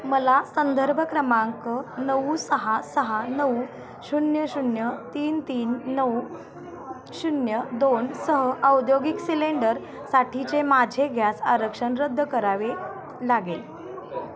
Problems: constant background noise, continuous background conversations